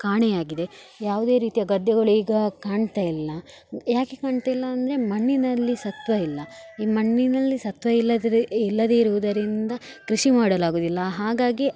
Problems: background sounds at intervals